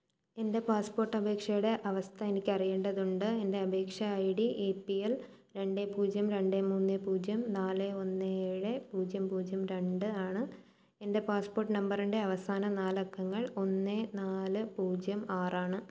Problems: none marked